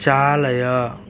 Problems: constant background noise